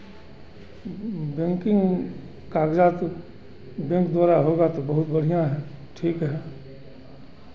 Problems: constant background noise